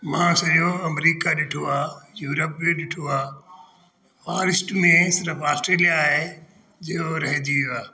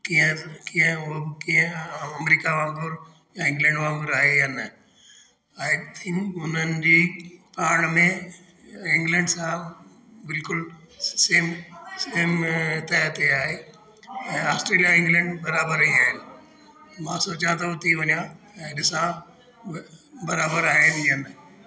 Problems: constant background noise, echo